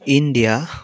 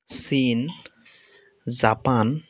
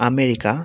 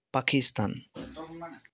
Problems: constant background noise, background conversations at intervals